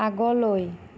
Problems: none marked